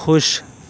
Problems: none marked